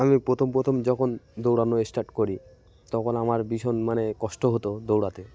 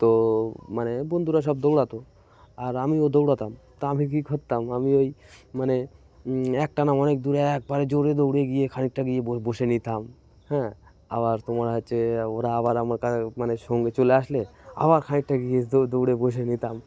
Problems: continuous background conversations